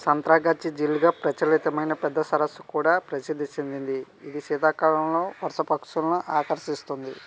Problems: background sounds at intervals